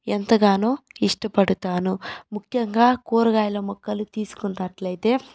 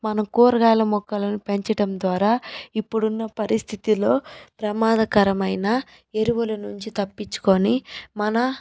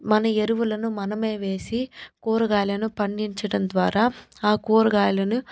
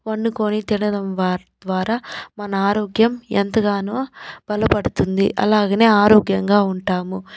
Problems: background sounds at intervals